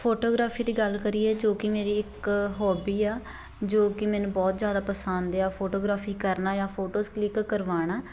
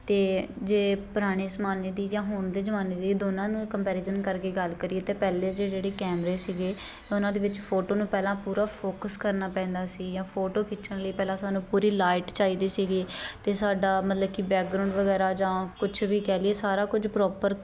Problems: none marked